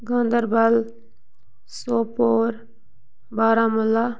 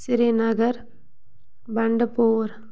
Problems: none marked